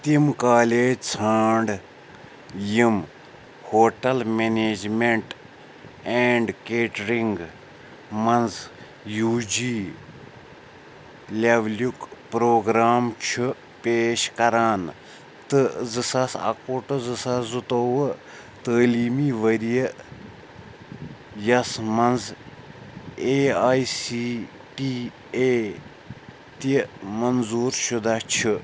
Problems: background sounds at intervals